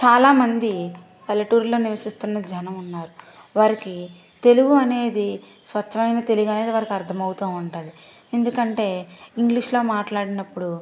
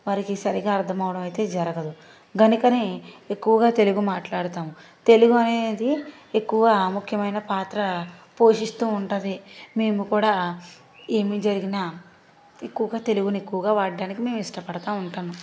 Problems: background sounds at intervals